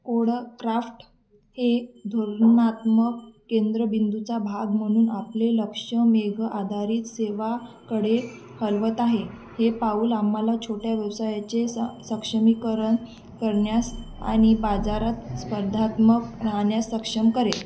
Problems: constant background noise, background conversations at intervals